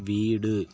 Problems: constant background noise